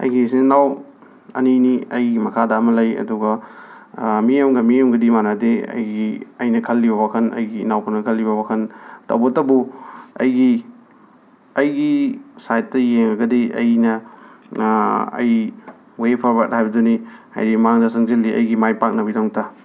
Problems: none marked